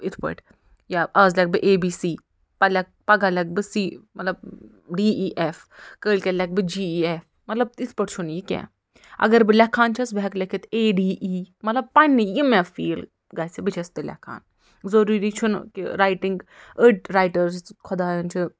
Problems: none marked